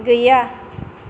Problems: constant background noise